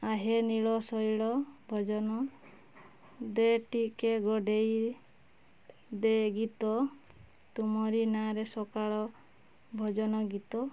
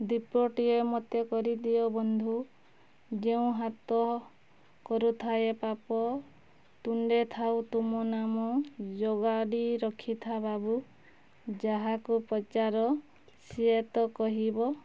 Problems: none marked